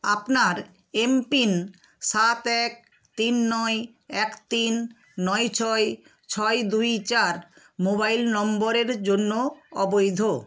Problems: none marked